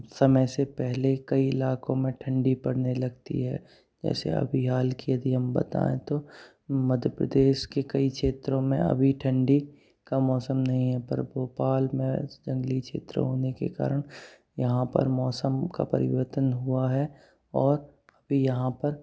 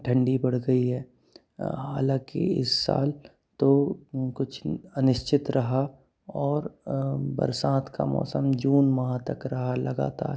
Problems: background sounds at intervals